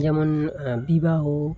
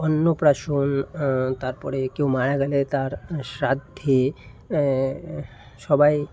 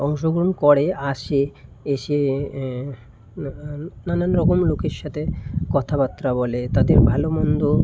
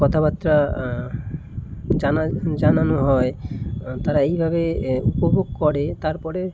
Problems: background sounds at intervals